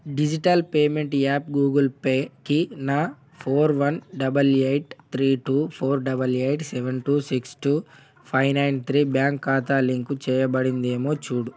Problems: background sounds at intervals